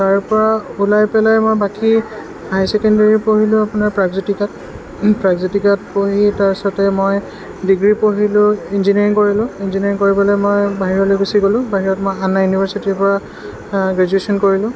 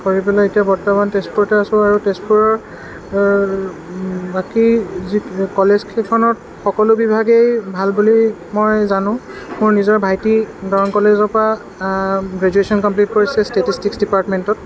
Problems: constant background noise